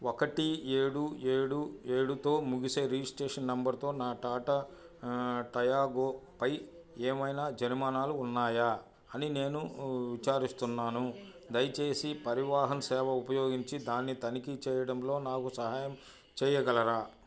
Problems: none marked